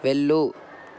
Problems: constant background noise